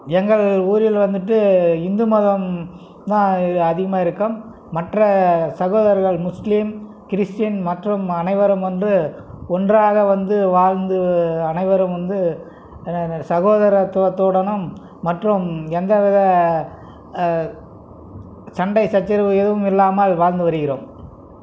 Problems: none marked